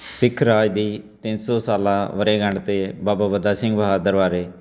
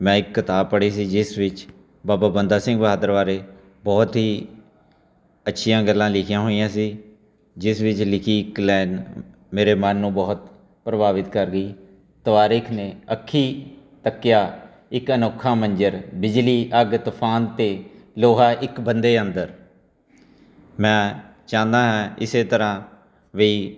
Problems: background sounds at intervals, continuous background conversations